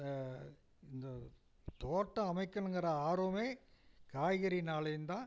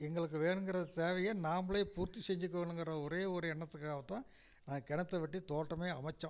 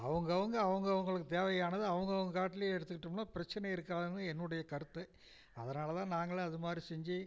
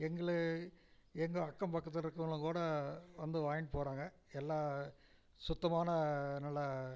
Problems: none marked